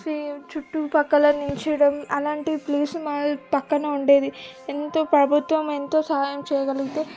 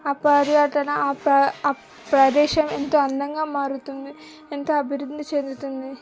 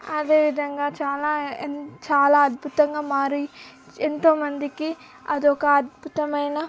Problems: background sounds at intervals